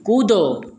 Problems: none marked